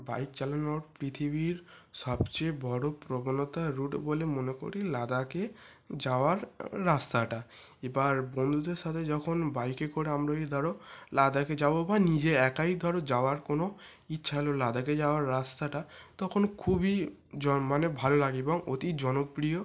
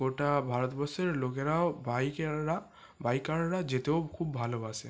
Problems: background sounds at intervals